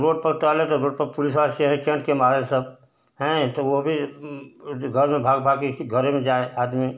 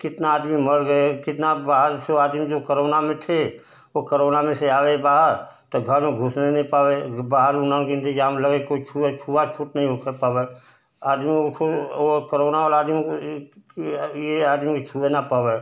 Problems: constant background noise